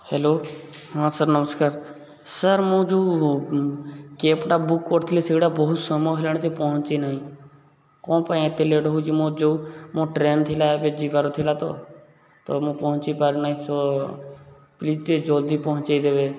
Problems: none marked